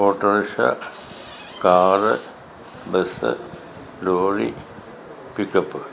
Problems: constant background noise